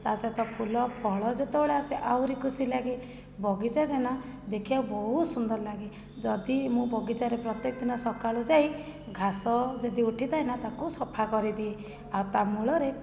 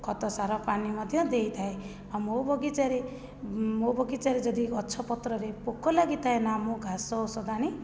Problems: low volume